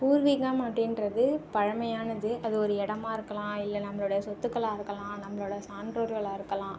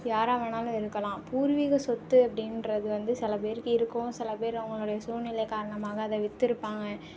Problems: none marked